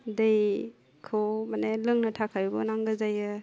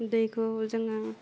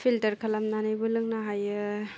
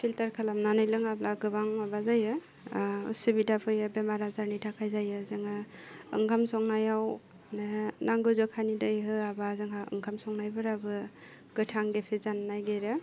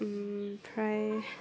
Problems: none marked